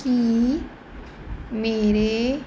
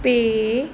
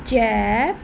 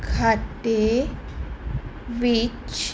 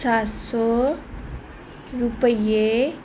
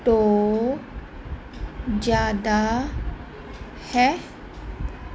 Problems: none marked